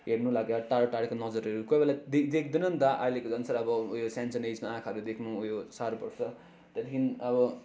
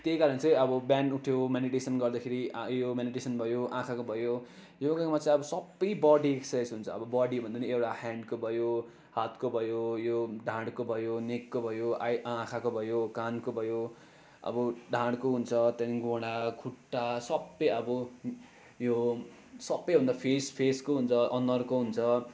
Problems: constant background noise